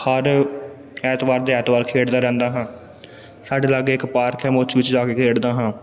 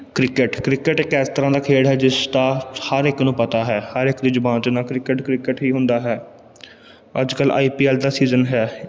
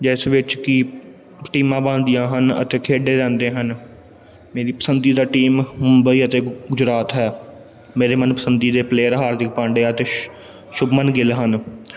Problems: background sounds at intervals